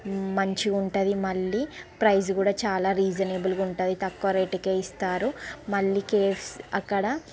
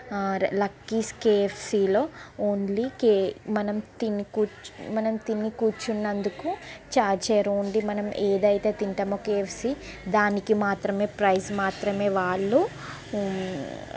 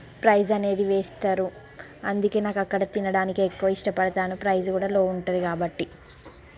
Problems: constant background noise, background conversations at intervals